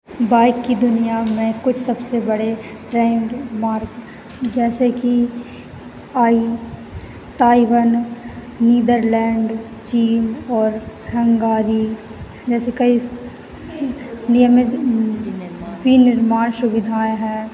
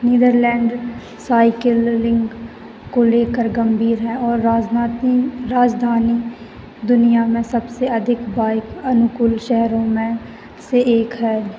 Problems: constant background noise